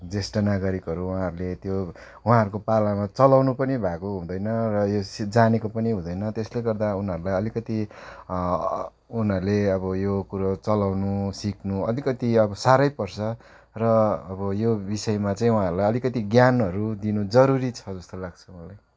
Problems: background sounds at intervals